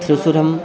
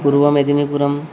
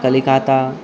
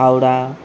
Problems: constant background noise, continuous background conversations